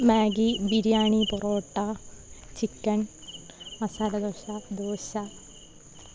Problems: none marked